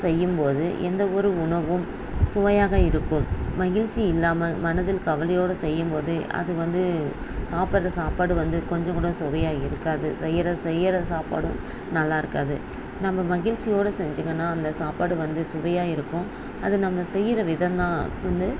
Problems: none marked